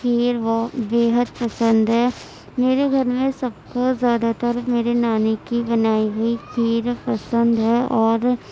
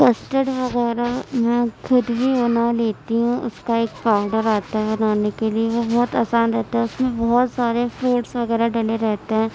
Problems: constant background noise, background conversations at intervals